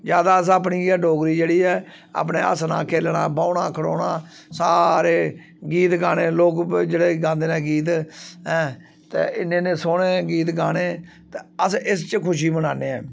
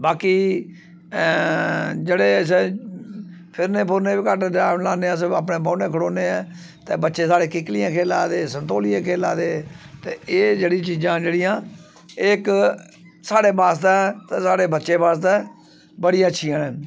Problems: none marked